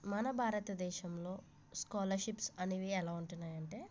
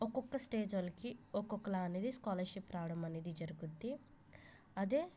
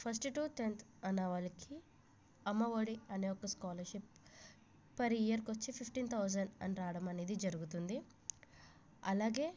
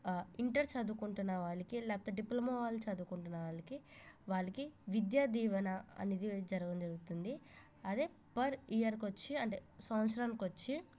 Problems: low volume